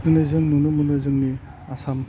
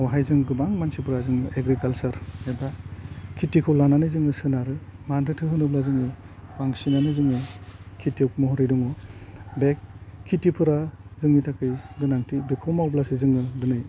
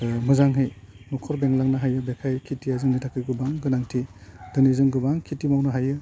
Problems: low volume